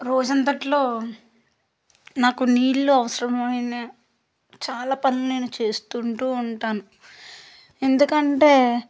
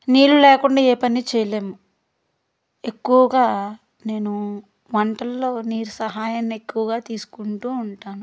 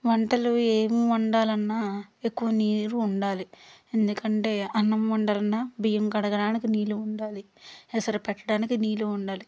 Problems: none marked